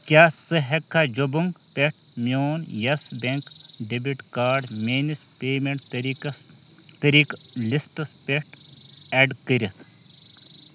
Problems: constant background noise